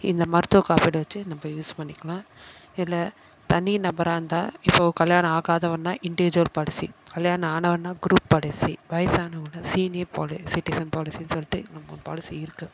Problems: none marked